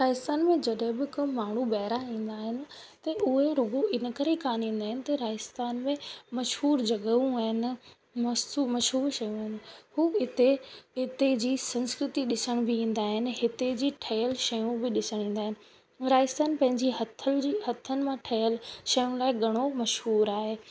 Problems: constant background noise